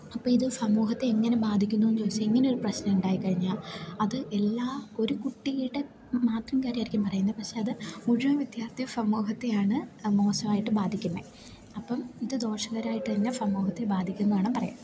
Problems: background sounds at intervals, low volume